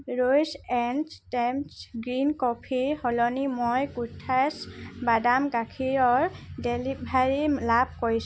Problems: constant background noise